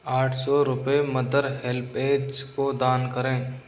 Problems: constant background noise